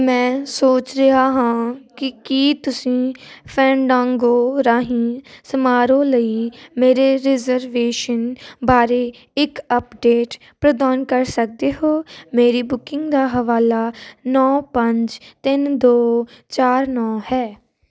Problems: constant background noise